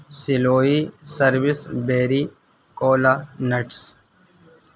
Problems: constant background noise